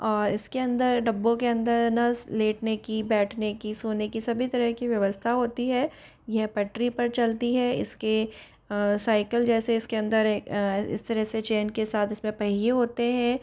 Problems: background sounds at intervals